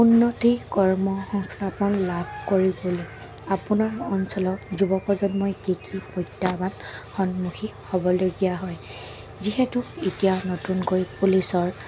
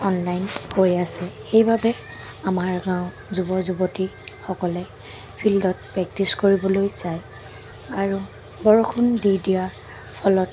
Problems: none marked